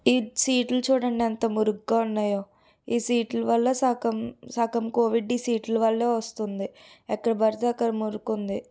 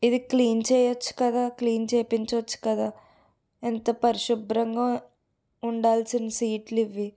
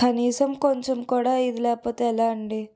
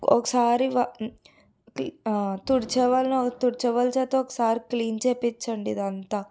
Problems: background sounds at intervals